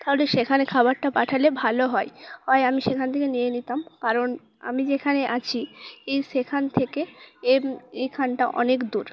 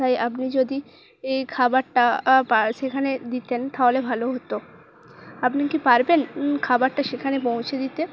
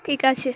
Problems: constant background noise